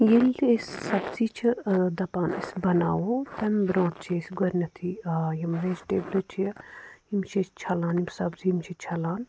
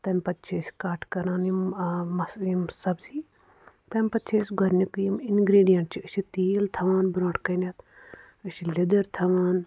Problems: none marked